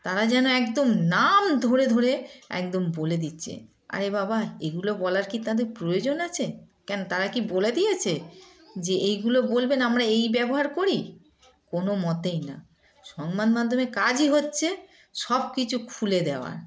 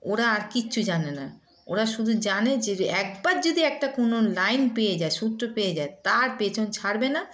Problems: background sounds at intervals